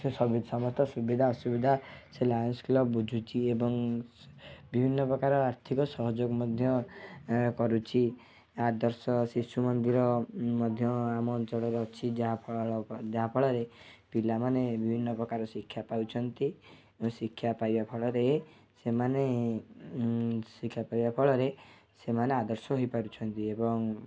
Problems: background sounds at intervals, low volume